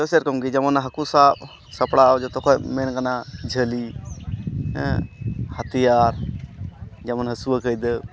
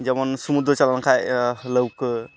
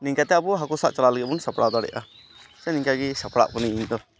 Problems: constant background noise, background conversations at intervals